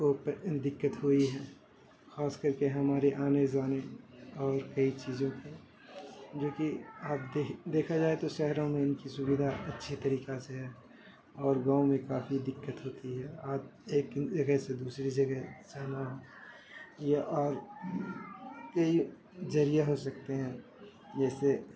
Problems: constant background noise